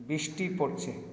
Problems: echo